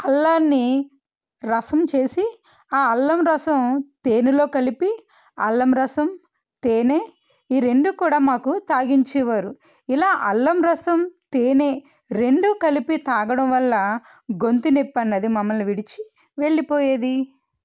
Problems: none marked